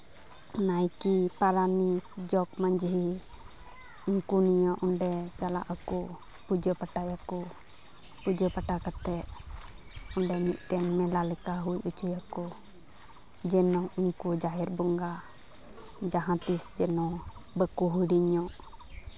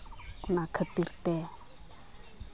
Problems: background sounds at intervals, background conversations at intervals